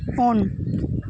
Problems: constant background noise